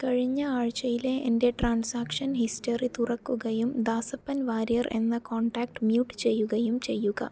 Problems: none marked